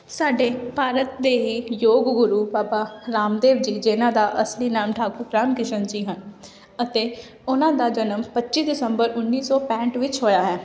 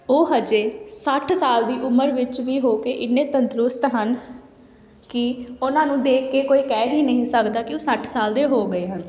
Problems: none marked